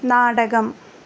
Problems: constant background noise